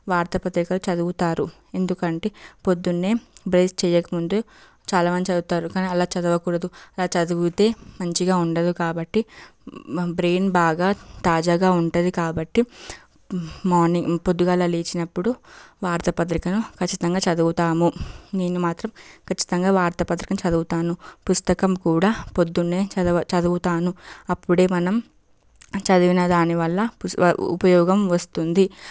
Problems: background sounds at intervals